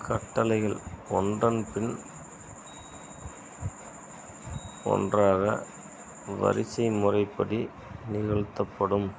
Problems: constant background noise